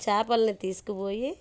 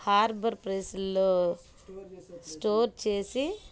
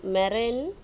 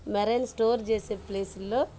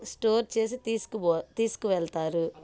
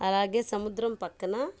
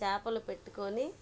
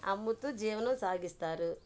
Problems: background sounds at intervals, low volume